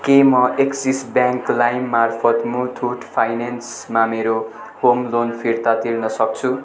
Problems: none marked